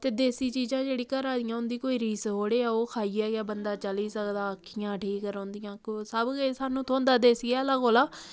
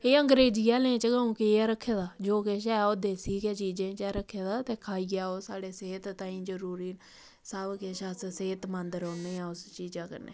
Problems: none marked